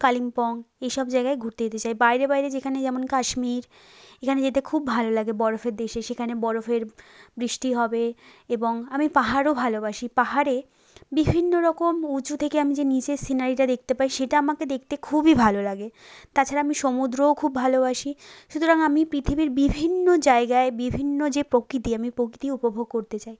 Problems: background sounds at intervals